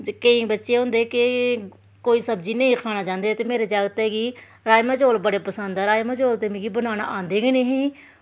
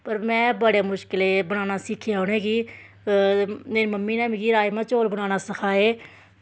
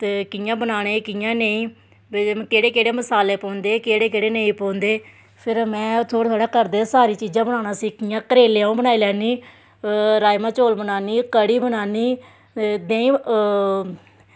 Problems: none marked